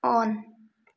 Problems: none marked